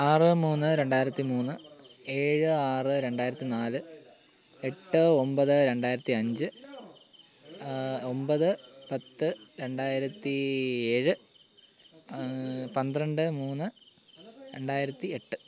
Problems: none marked